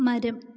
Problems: low volume